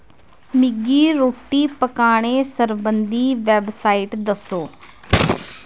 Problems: none marked